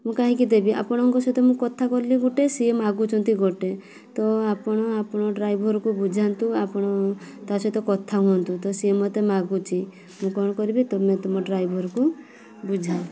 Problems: constant background noise